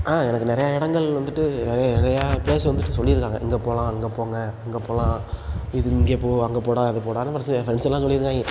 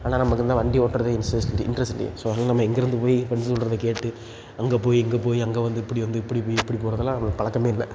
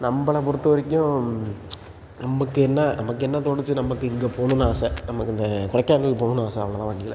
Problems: background sounds at intervals